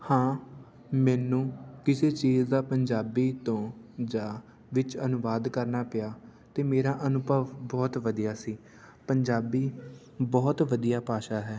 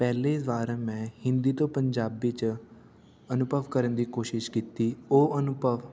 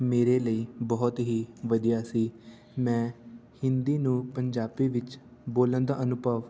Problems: none marked